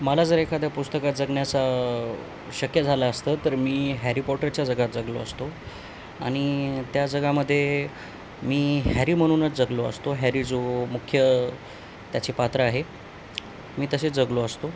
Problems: none marked